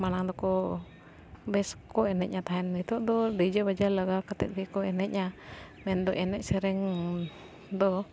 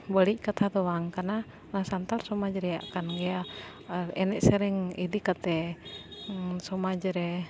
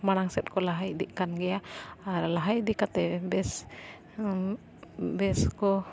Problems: background sounds at intervals